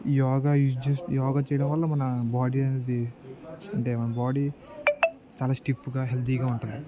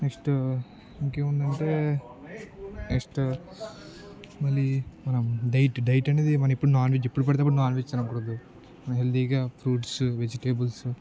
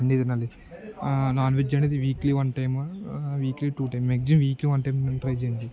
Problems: low volume